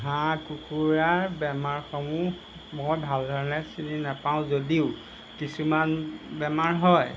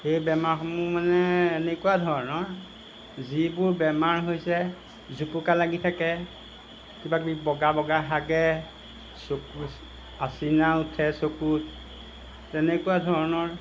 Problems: background sounds at intervals